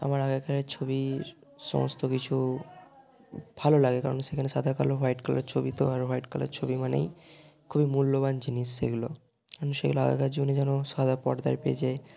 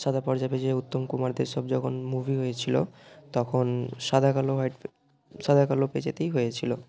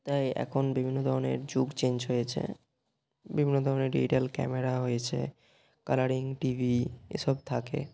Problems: none marked